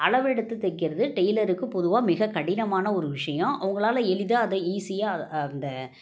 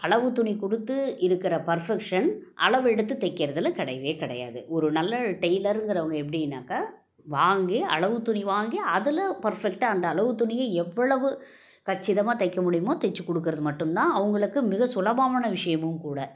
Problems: none marked